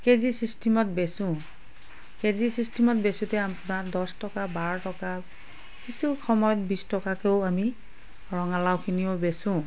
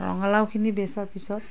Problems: background sounds at intervals, background conversations at intervals